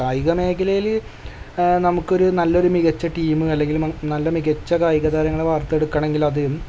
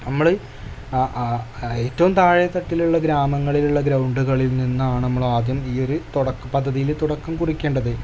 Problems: background sounds at intervals